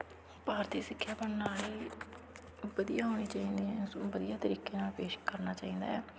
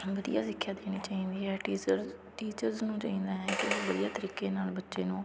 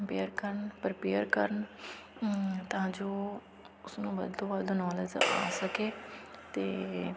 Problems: constant background noise, continuous background conversations